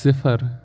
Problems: none marked